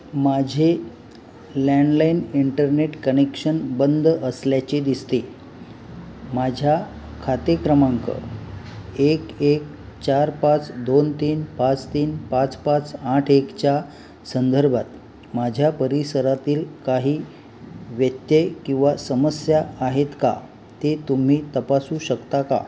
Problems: none marked